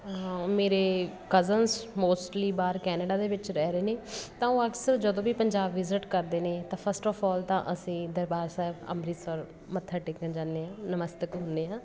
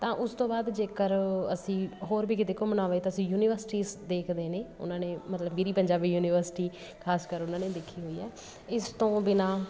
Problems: constant background noise